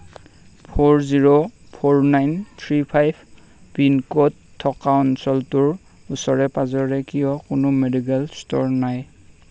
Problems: constant background noise